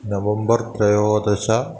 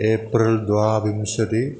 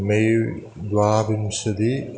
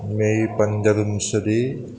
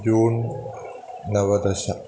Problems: constant background noise